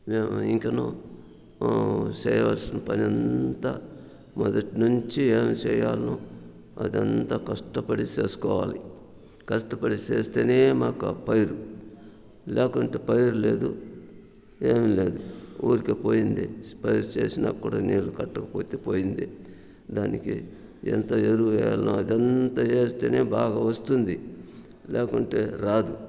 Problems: constant background noise